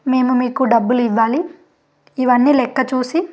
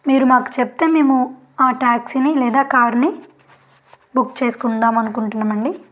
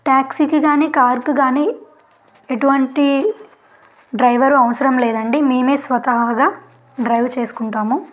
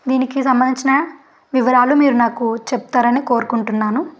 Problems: background sounds at intervals